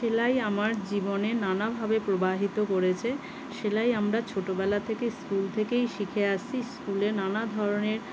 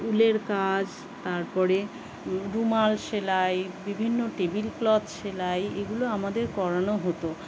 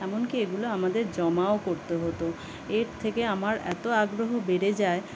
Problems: constant background noise